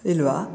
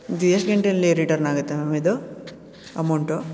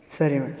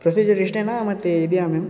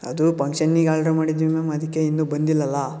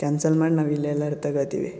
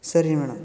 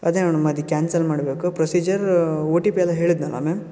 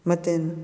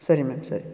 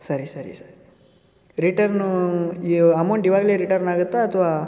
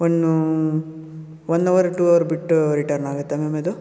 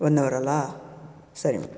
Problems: background conversations at intervals